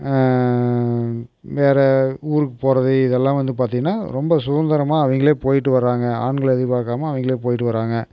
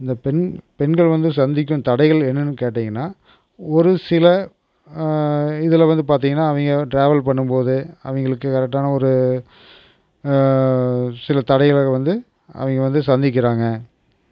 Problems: none marked